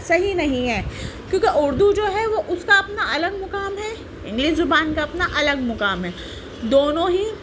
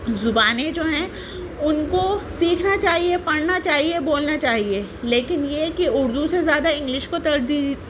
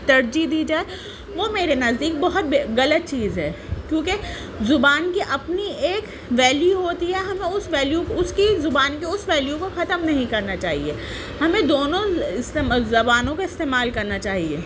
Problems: constant background noise, low volume